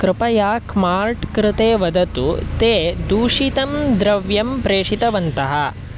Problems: constant background noise